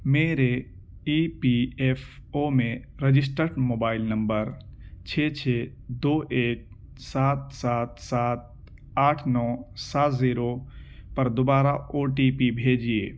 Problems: constant background noise